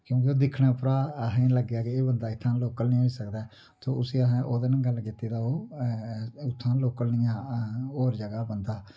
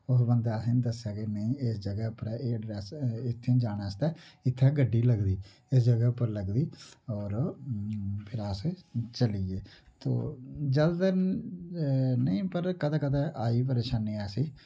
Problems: low volume